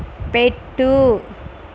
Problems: constant background noise